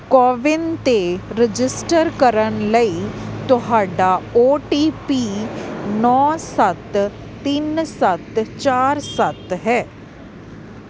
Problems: constant background noise